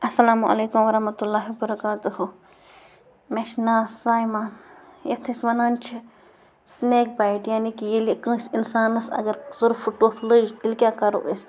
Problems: constant background noise